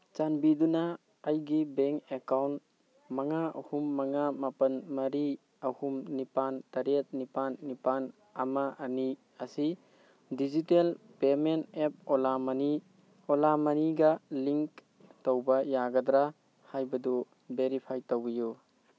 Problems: constant background noise